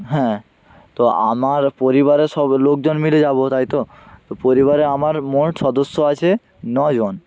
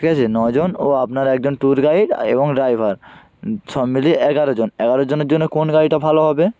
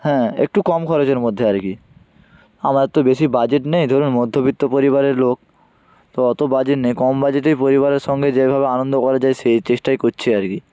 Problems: none marked